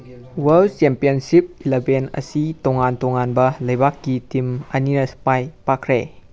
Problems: background sounds at intervals